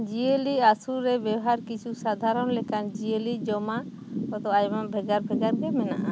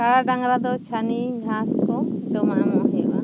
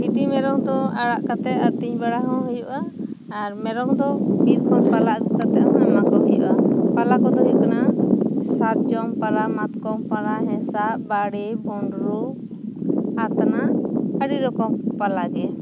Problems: background sounds at intervals